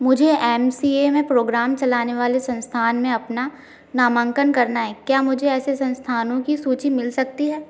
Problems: none marked